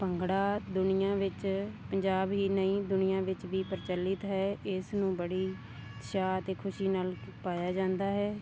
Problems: none marked